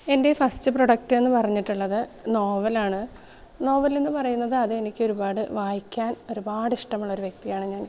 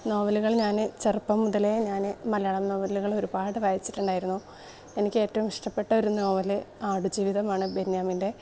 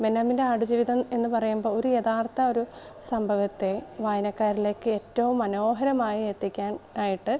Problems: background sounds at intervals